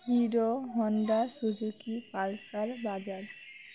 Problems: constant background noise, continuous background conversations